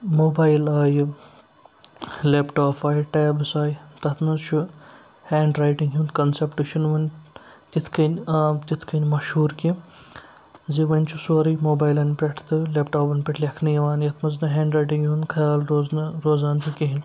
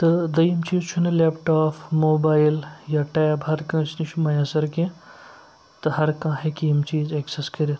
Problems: none marked